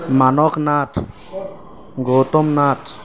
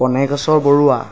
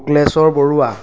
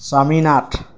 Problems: constant background noise